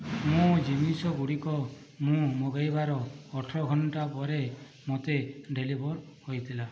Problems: background sounds at intervals, low volume